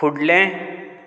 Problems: background sounds at intervals